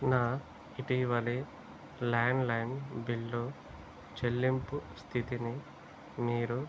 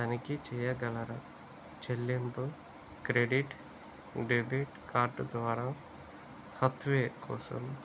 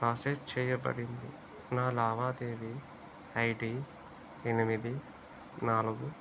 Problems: low volume